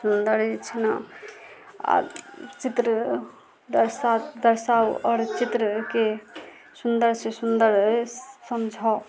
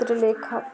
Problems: background sounds at intervals